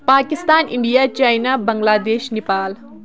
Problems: constant background noise